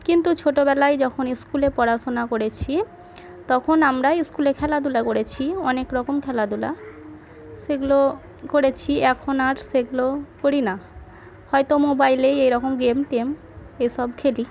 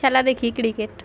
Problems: background sounds at intervals, continuous background conversations